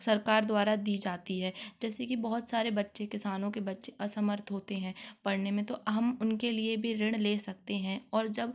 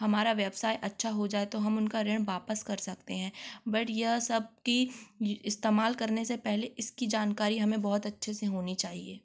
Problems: constant background noise